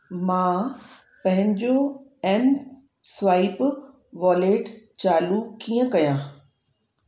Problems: constant background noise, echo